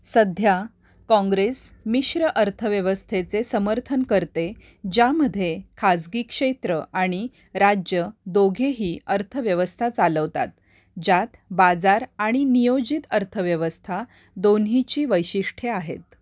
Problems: constant background noise